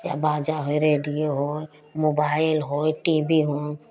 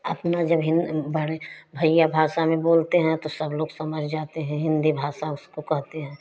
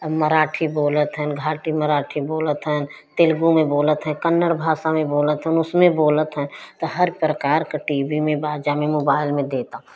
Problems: constant background noise